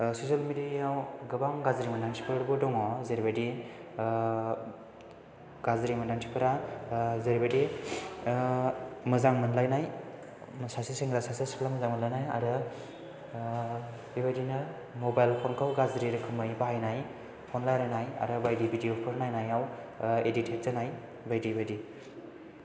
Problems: background sounds at intervals